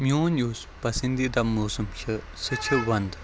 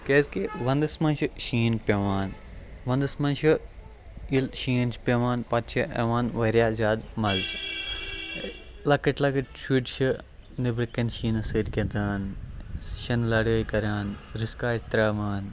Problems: constant background noise, continuous background conversations